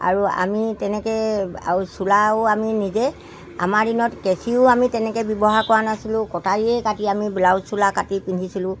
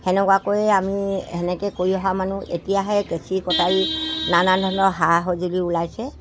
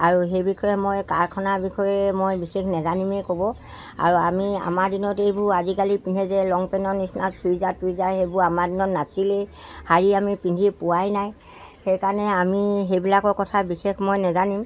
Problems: constant background noise